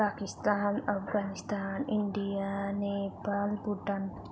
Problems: constant background noise